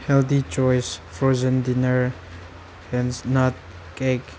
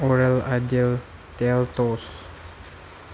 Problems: background sounds at intervals